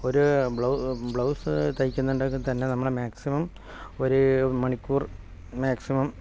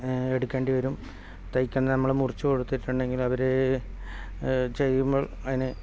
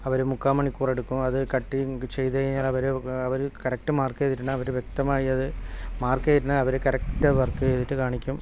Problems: background sounds at intervals, low volume